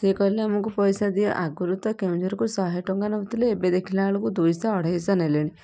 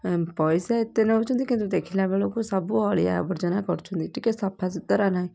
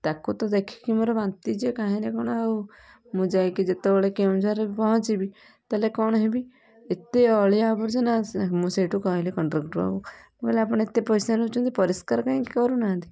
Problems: none marked